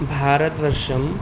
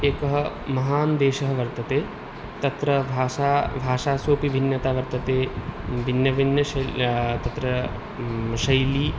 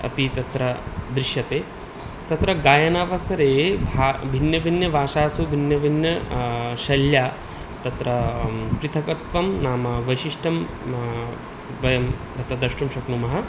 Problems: none marked